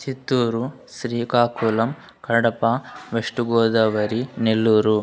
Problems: background sounds at intervals